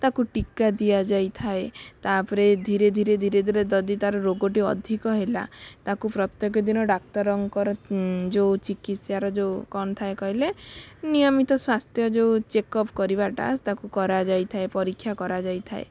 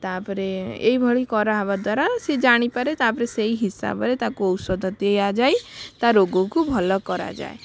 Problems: background sounds at intervals